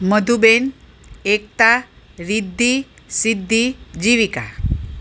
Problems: none marked